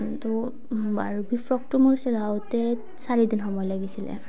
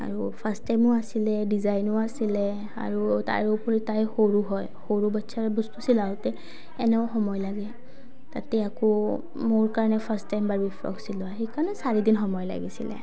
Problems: low volume